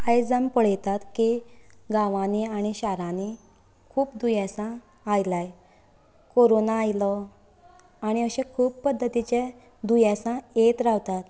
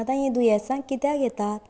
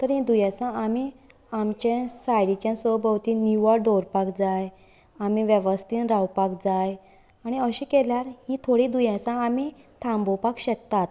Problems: none marked